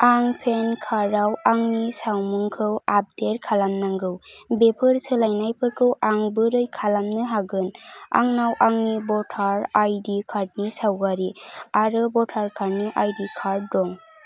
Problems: background sounds at intervals